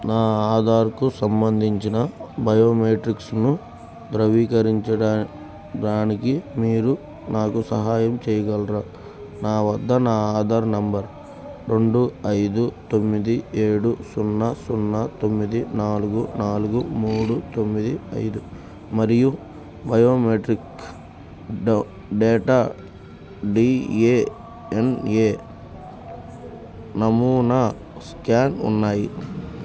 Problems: constant background noise